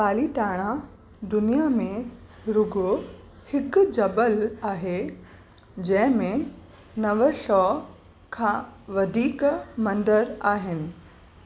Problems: constant background noise